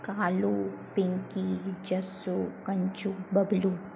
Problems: low volume